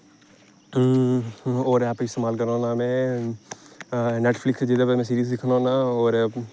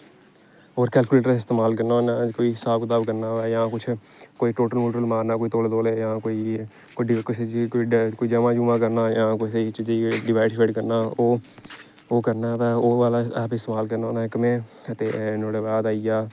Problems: constant background noise